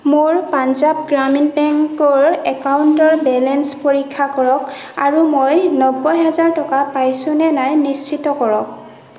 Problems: constant background noise